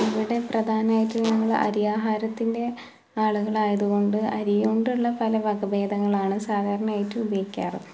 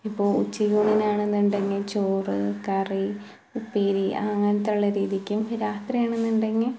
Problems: background sounds at intervals